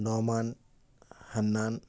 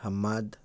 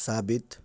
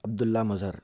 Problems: none marked